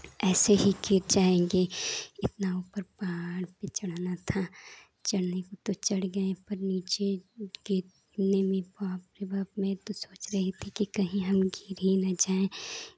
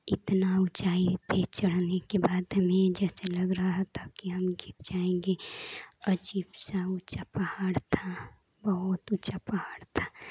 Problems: constant background noise